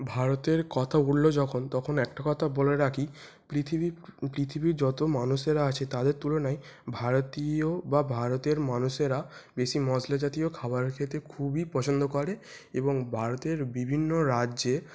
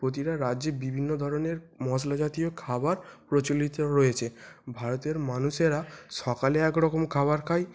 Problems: constant background noise